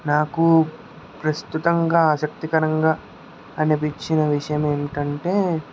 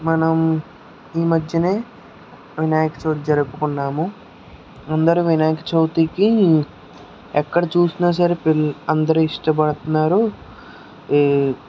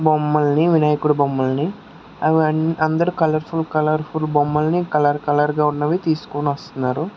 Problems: none marked